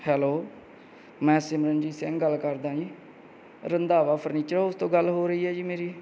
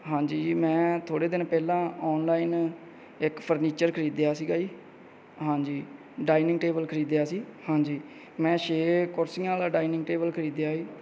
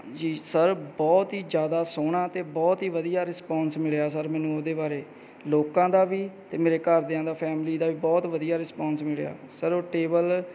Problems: background sounds at intervals